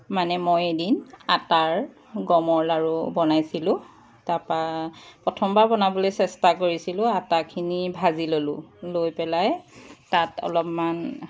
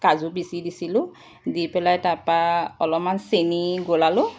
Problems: none marked